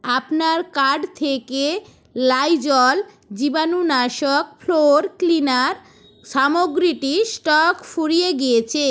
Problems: background sounds at intervals